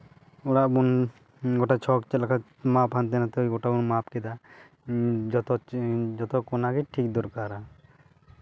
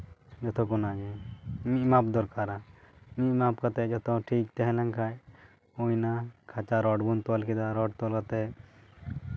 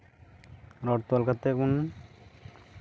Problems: background sounds at intervals